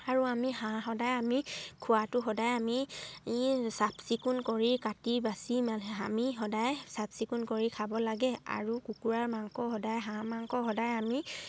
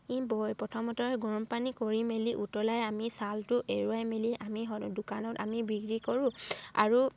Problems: none marked